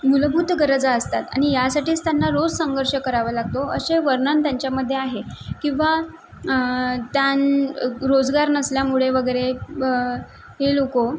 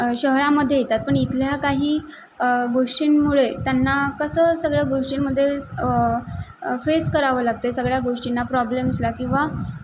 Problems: background sounds at intervals